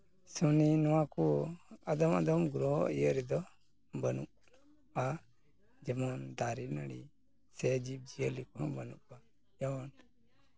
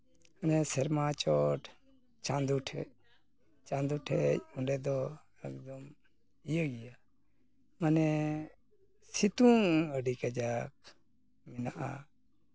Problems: background sounds at intervals, continuous background conversations